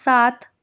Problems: constant background noise